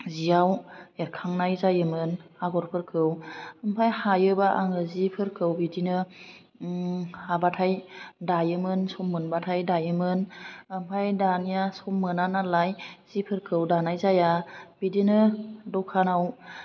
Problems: low volume